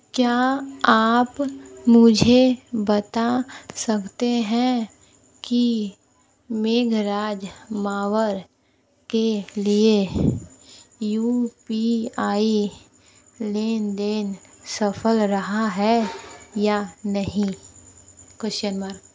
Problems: low volume